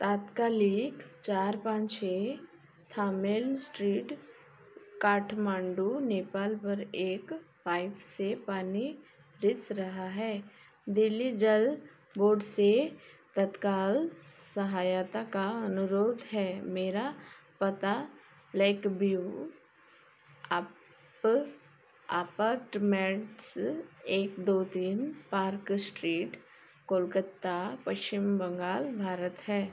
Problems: background sounds at intervals